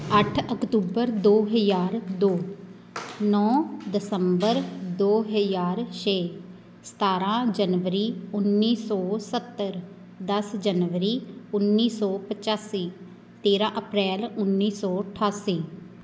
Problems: constant background noise